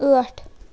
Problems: constant background noise